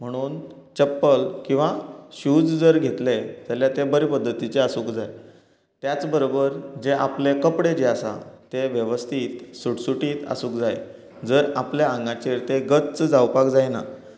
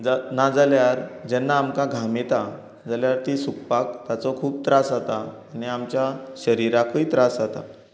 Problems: constant background noise